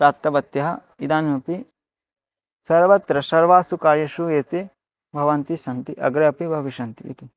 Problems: none marked